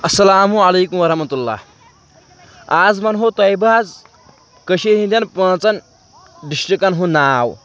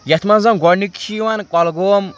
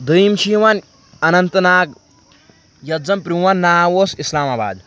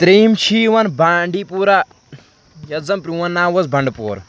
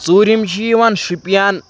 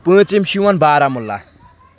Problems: background sounds at intervals, background conversations at intervals